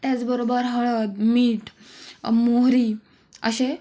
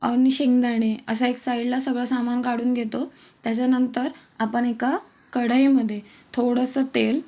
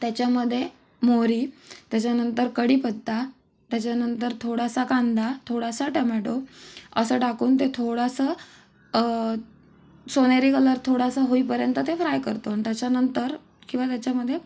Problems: none marked